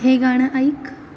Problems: constant background noise